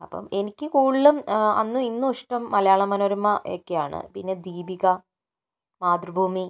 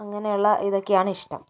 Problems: none marked